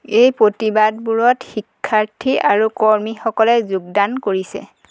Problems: constant background noise